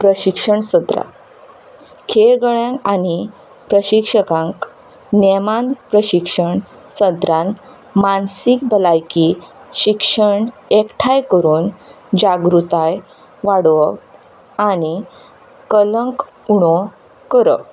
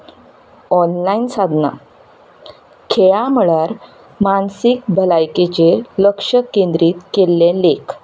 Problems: background sounds at intervals